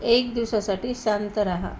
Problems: background sounds at intervals